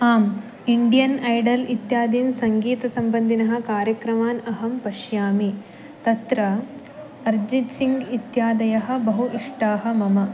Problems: background sounds at intervals